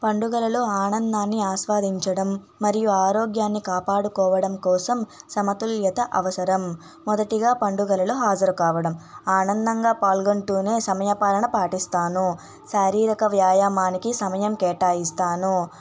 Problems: background sounds at intervals, background conversations at intervals